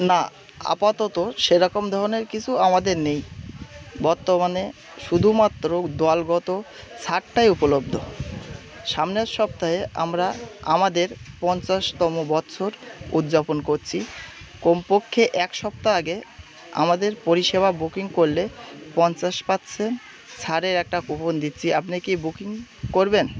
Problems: constant background noise, background conversations at intervals